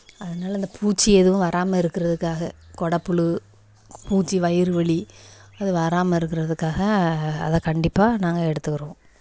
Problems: background sounds at intervals, echo